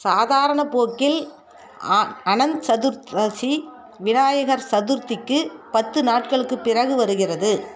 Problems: background conversations at intervals